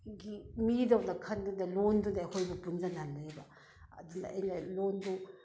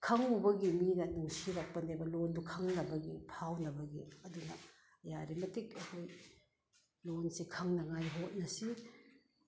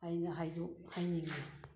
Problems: none marked